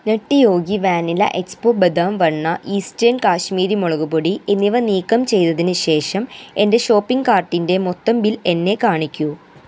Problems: constant background noise